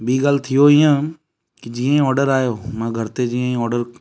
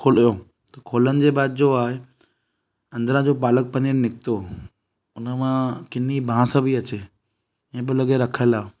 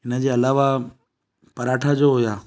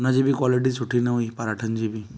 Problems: none marked